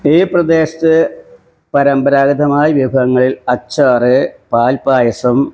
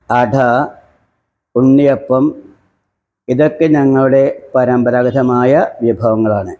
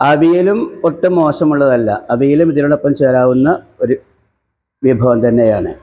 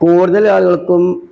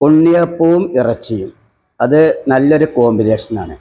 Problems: background sounds at intervals